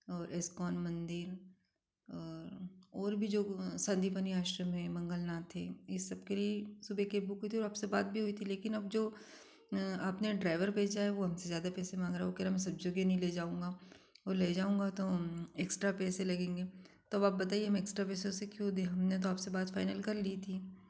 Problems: constant background noise